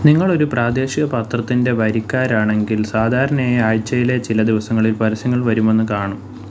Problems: low volume